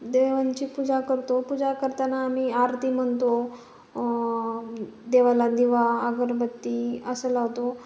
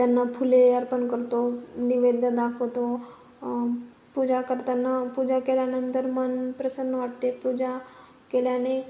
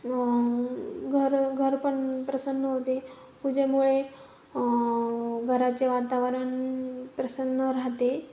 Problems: none marked